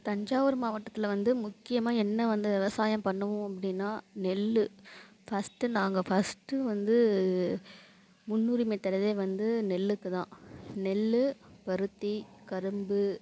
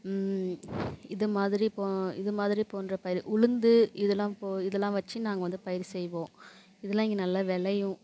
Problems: none marked